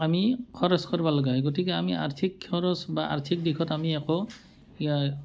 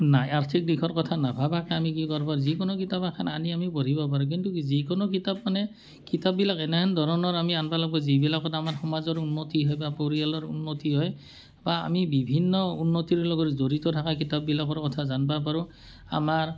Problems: none marked